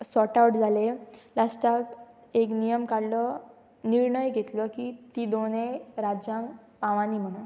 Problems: none marked